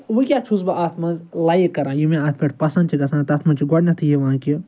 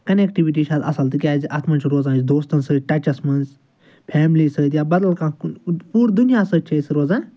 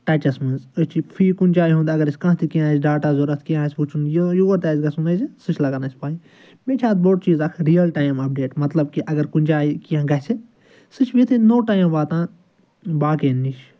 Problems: background sounds at intervals